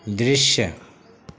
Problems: constant background noise